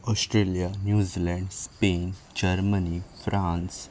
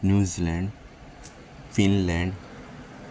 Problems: background sounds at intervals